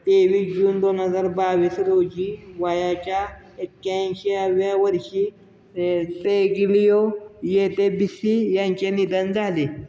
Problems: constant background noise